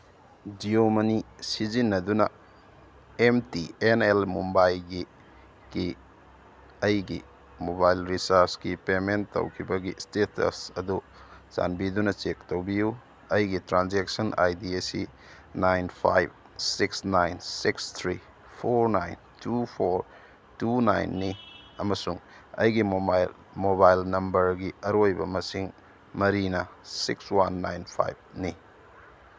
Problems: none marked